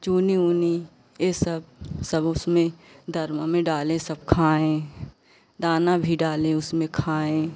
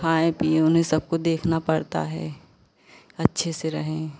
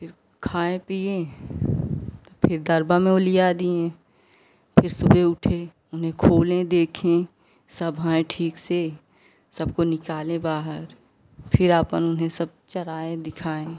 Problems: constant background noise